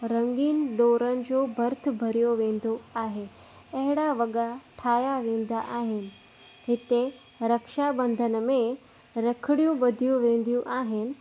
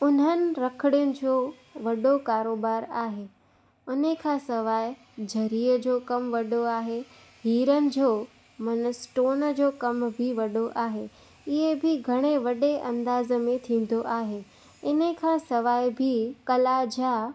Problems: constant background noise